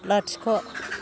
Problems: none marked